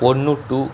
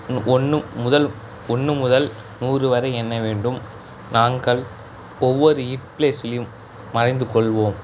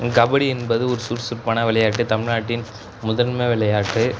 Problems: background sounds at intervals